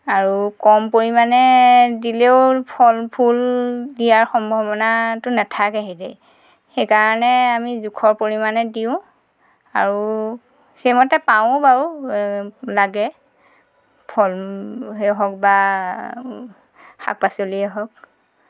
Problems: background sounds at intervals